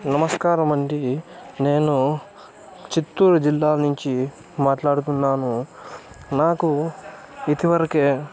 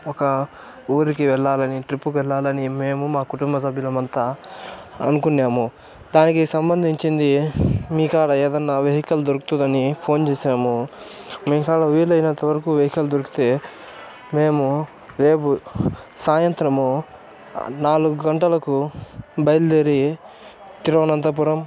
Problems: constant background noise, background conversations at intervals